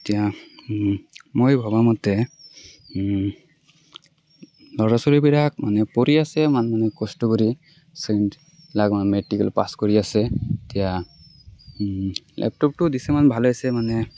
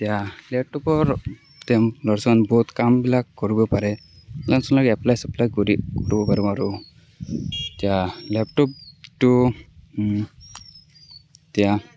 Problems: background sounds at intervals